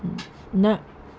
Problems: constant background noise